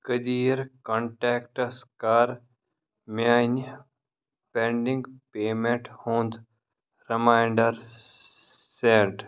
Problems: none marked